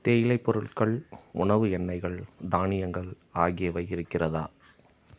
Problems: background sounds at intervals